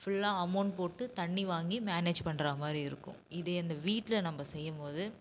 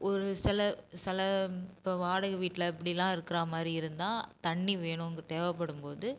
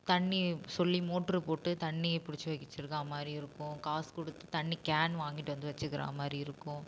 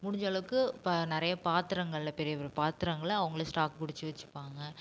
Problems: constant background noise